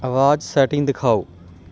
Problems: background sounds at intervals